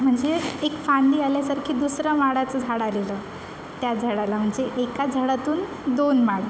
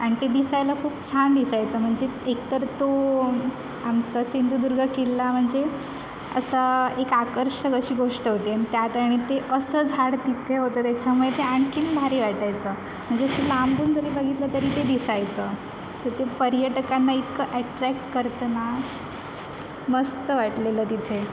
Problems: constant background noise, background conversations at intervals